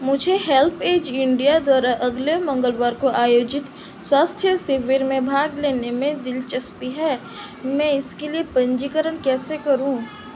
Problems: constant background noise